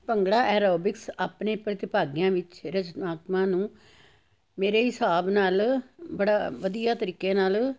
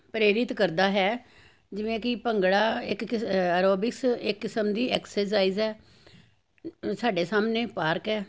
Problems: none marked